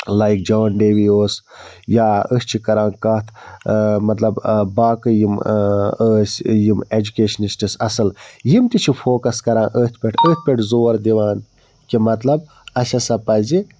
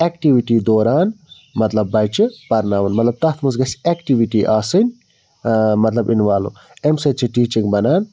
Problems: background sounds at intervals